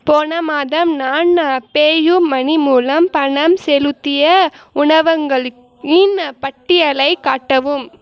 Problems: none marked